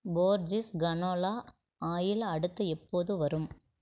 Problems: none marked